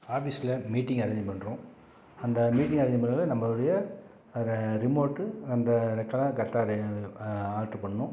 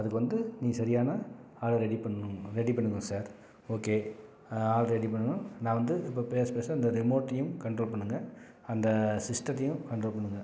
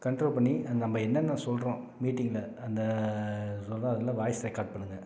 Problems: none marked